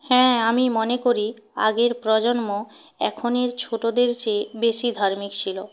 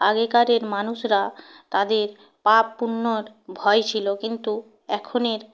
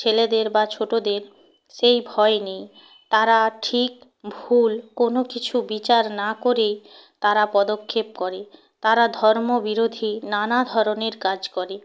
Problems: background sounds at intervals